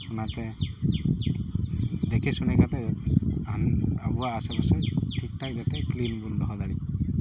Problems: background sounds at intervals